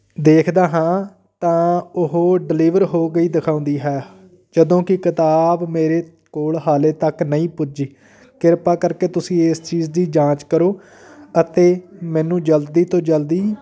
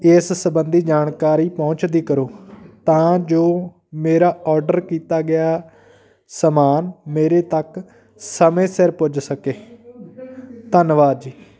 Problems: background sounds at intervals, continuous background conversations